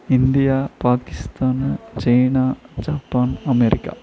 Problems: none marked